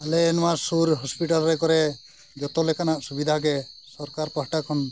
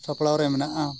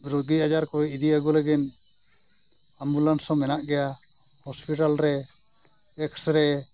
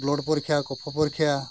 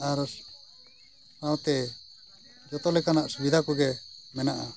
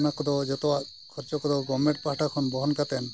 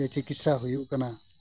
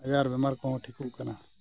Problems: none marked